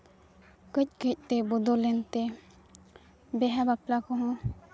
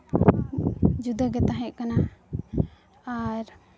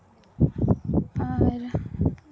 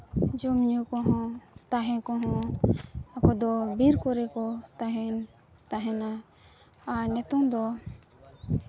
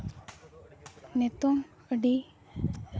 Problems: background conversations at intervals